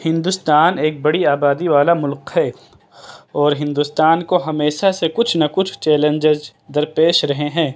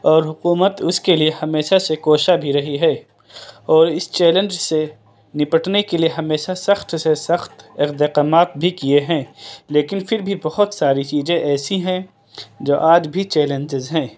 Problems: none marked